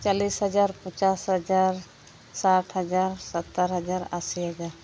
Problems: none marked